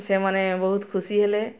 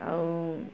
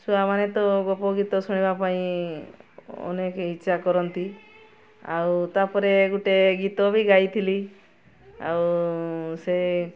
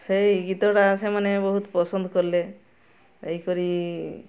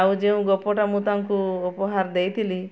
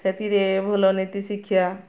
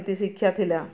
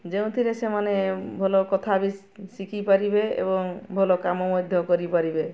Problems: constant background noise, continuous background conversations